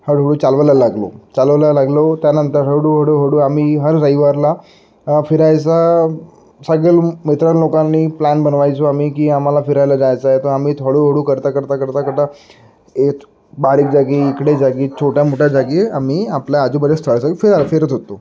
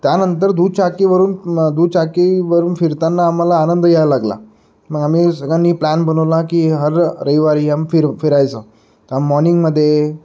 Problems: constant background noise, background conversations at intervals